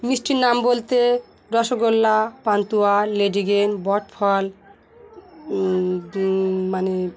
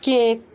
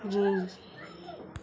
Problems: background sounds at intervals, continuous background conversations